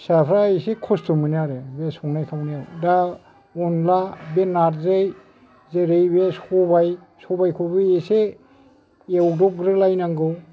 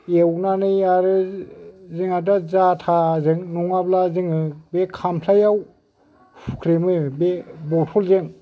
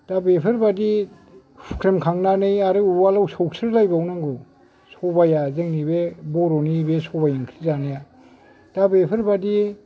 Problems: none marked